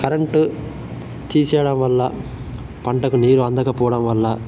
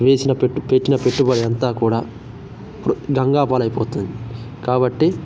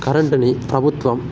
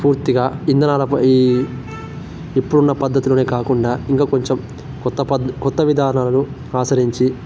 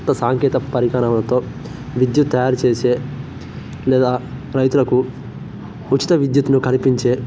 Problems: constant background noise